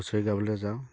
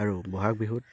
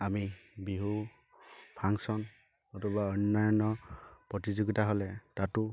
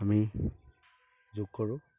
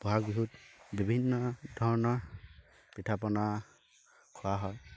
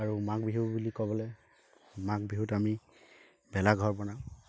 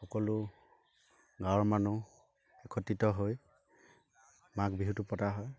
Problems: none marked